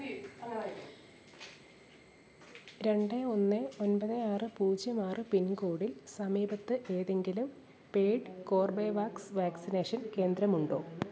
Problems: none marked